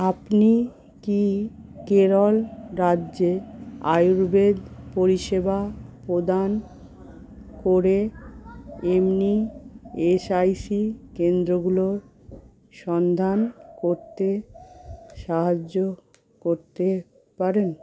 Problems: constant background noise, continuous background conversations